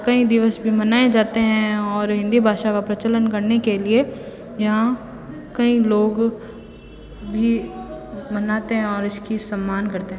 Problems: constant background noise, continuous background conversations